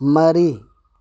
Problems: low volume